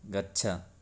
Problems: none marked